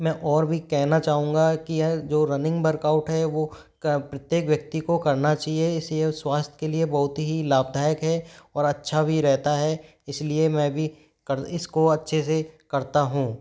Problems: background sounds at intervals